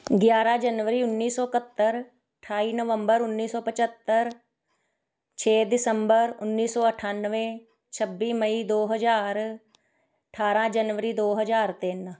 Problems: background sounds at intervals